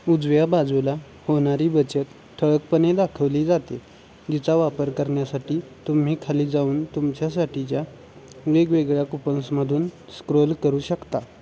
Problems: constant background noise, background conversations at intervals